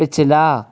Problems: constant background noise